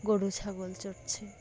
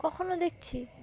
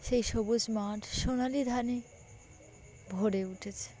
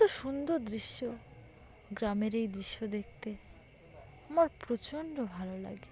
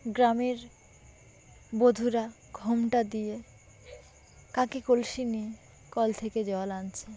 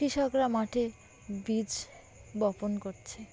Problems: background sounds at intervals, background conversations at intervals